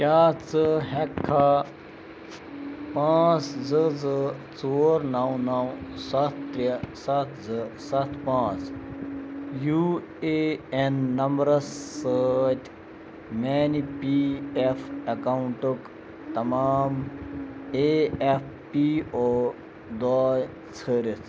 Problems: constant background noise